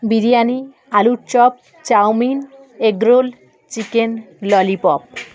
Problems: constant background noise